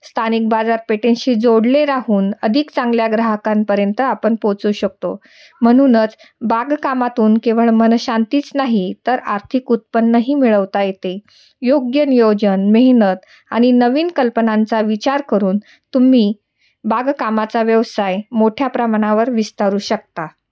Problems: none marked